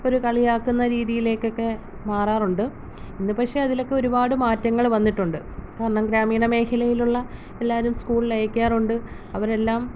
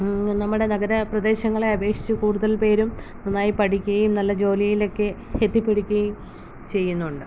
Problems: low volume